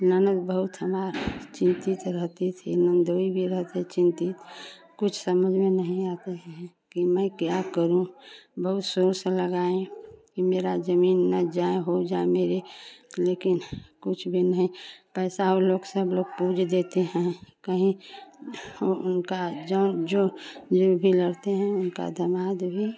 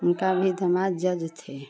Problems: constant background noise, continuous background conversations